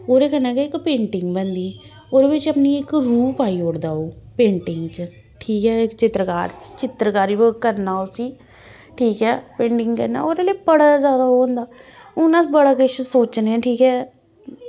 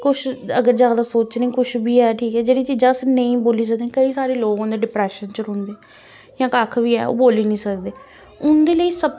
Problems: none marked